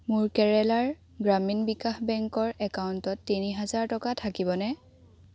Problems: background conversations at intervals